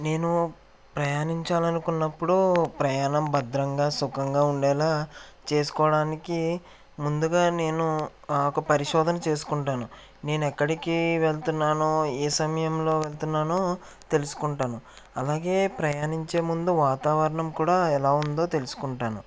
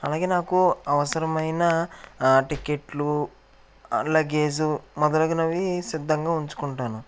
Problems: background sounds at intervals